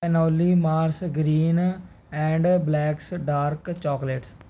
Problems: none marked